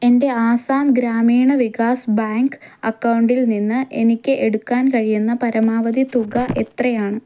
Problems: none marked